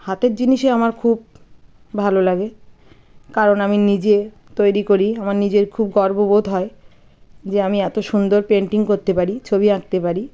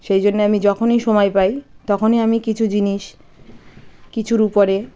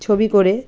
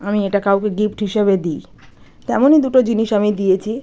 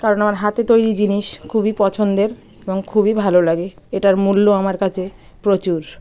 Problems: background sounds at intervals, background conversations at intervals